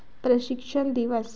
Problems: constant background noise